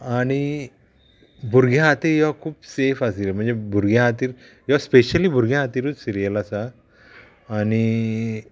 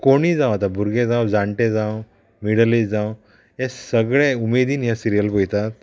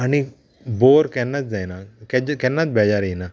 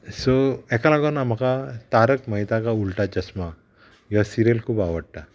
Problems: constant background noise